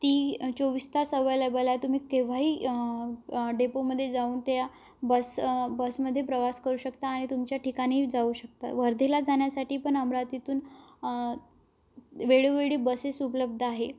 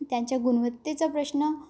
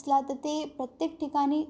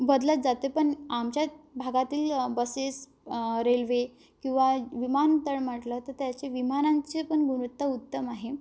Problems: none marked